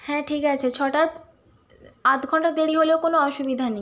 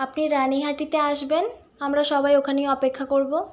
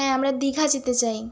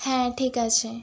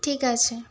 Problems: constant background noise